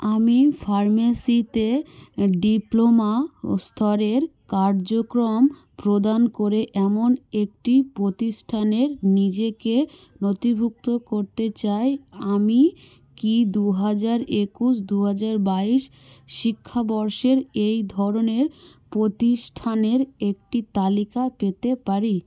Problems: none marked